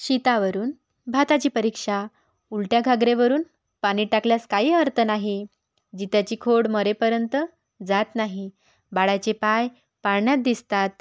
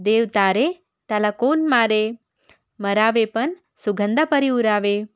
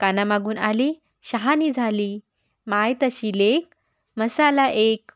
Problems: background sounds at intervals